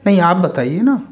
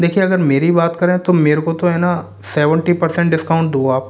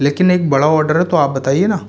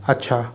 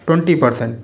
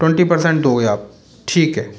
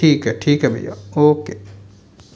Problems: none marked